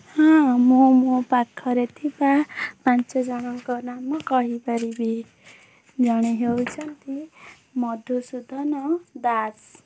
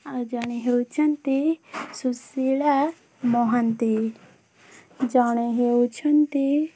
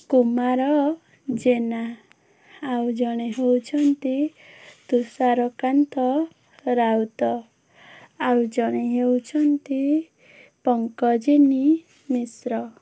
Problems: background sounds at intervals